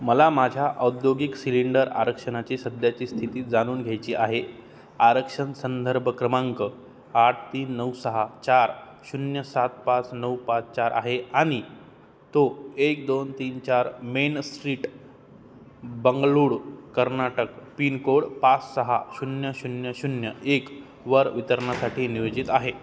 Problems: none marked